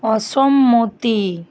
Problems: constant background noise